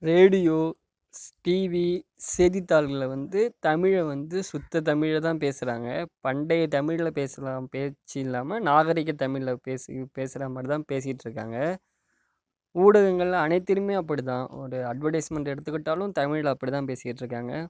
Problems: none marked